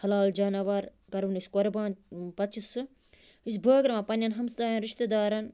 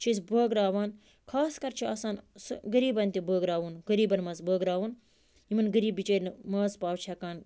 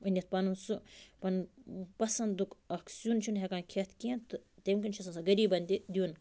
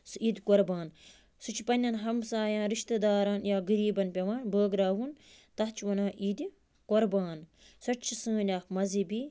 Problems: constant background noise